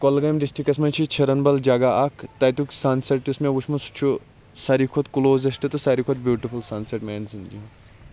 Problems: constant background noise, background conversations at intervals